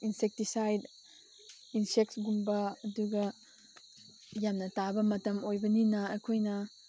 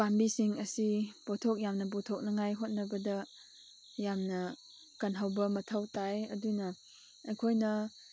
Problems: none marked